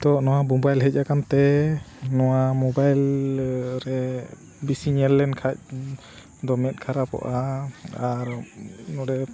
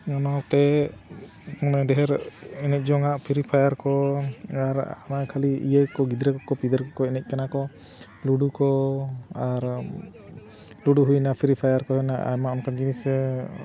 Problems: constant background noise, continuous background conversations